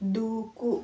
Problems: none marked